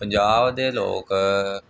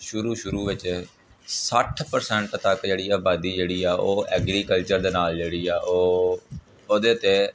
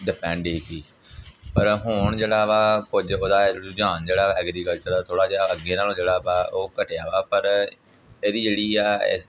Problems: none marked